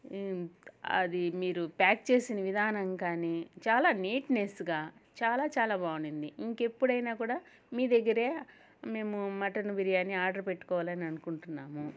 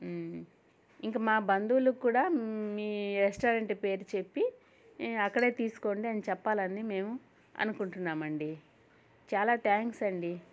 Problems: none marked